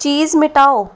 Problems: constant background noise